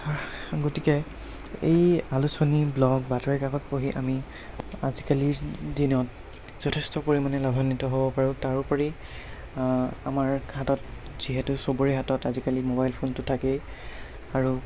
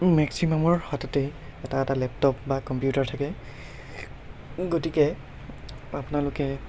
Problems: constant background noise